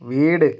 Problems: none marked